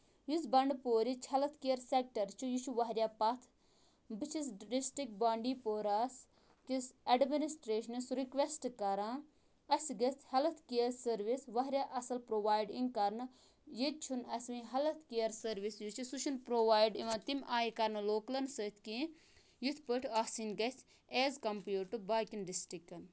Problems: none marked